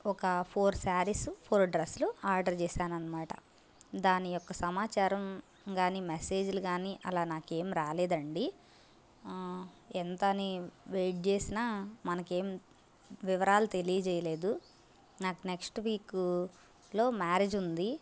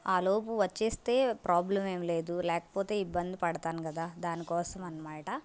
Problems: constant background noise